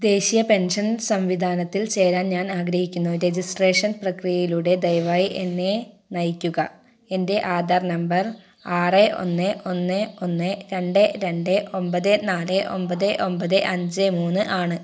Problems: none marked